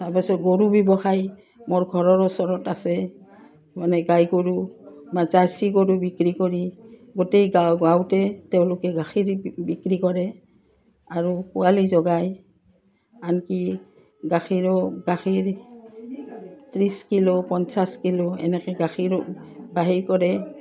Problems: none marked